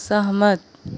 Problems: background conversations at intervals